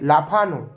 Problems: constant background noise